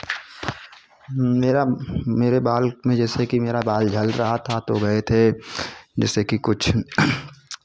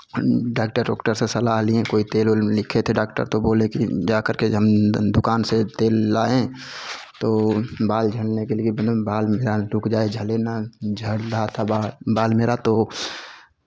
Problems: none marked